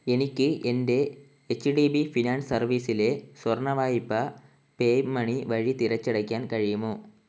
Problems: constant background noise